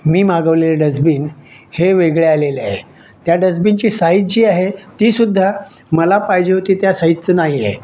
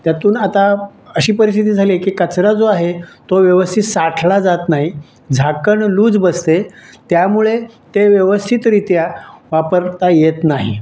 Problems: none marked